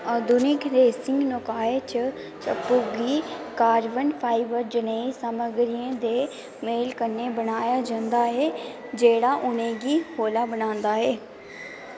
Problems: constant background noise